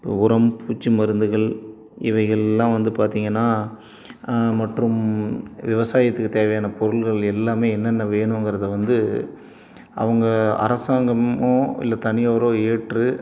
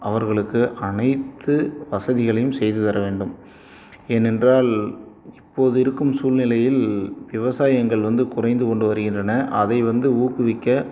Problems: none marked